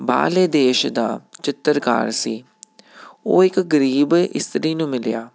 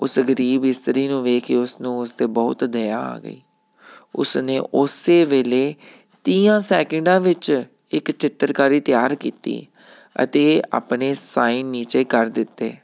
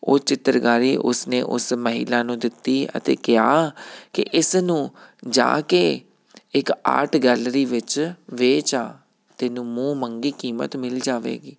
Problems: none marked